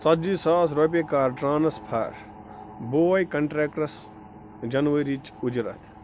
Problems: constant background noise